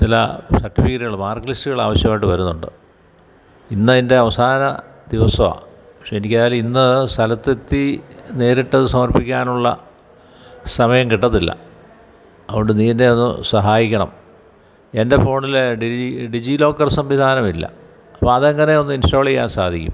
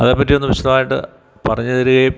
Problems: background sounds at intervals